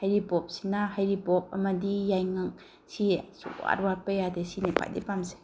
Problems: background sounds at intervals